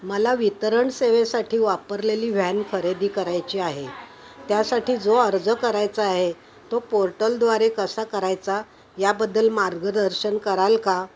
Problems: constant background noise